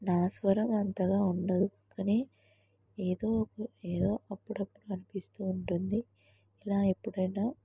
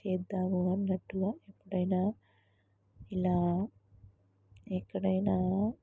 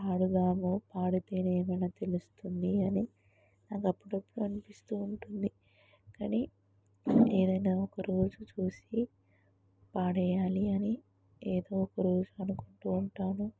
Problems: low volume